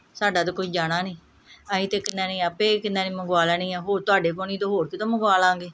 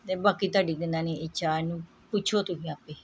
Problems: background sounds at intervals